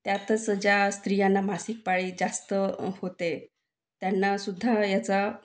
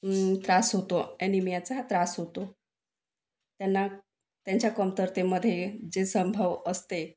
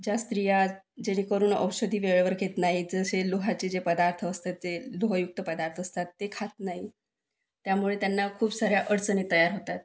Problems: none marked